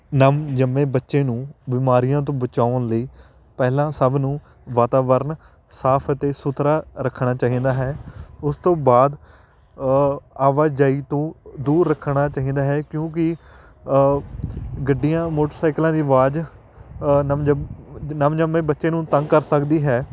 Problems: constant background noise